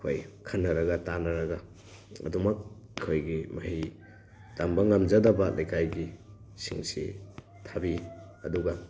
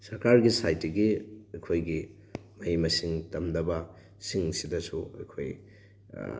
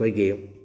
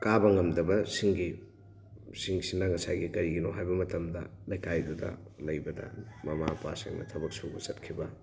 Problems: background sounds at intervals